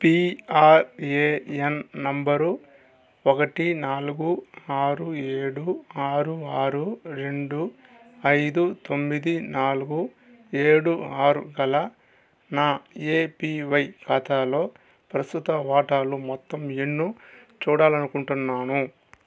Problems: constant background noise, background conversations at intervals